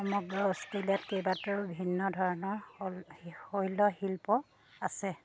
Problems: none marked